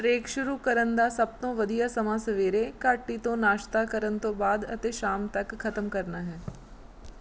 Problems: background sounds at intervals